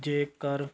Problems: constant background noise